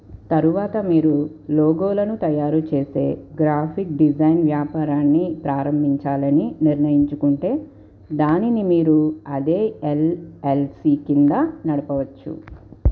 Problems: constant background noise